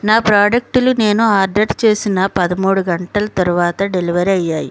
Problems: none marked